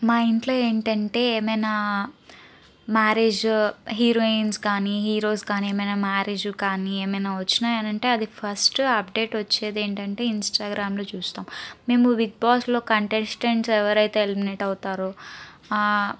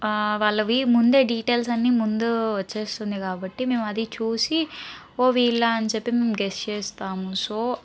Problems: background conversations at intervals